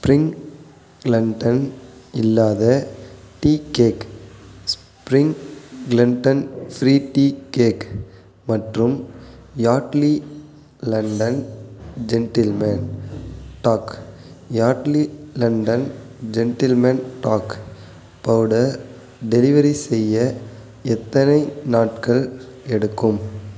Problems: constant background noise